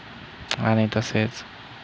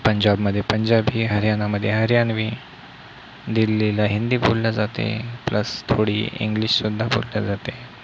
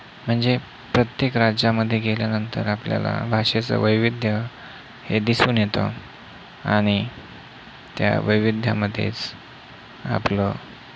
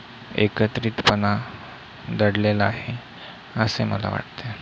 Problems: constant background noise